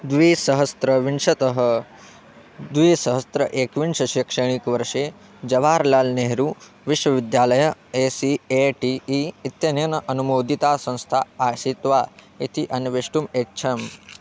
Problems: background conversations at intervals